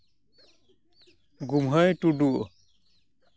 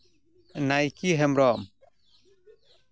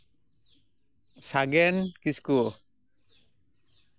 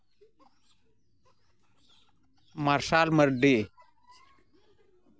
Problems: constant background noise